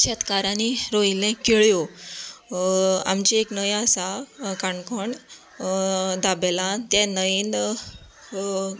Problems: background sounds at intervals